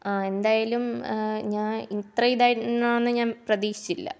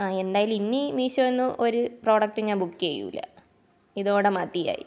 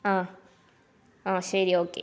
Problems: low volume